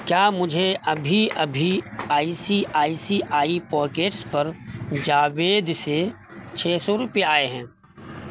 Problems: constant background noise